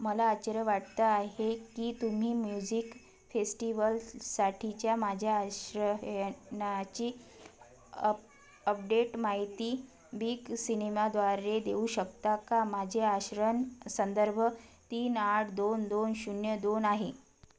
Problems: background conversations at intervals